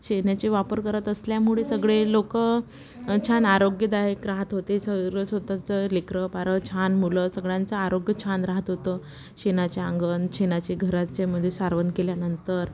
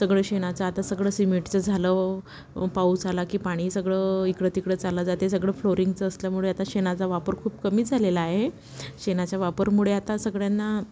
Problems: constant background noise